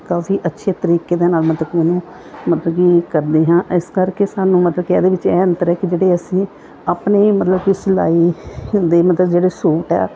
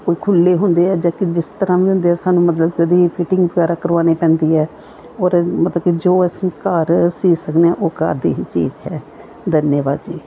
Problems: background sounds at intervals